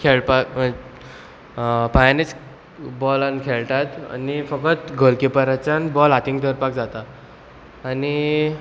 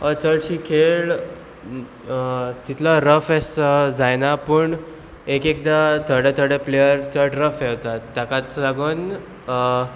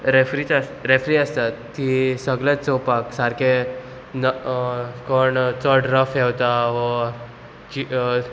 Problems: none marked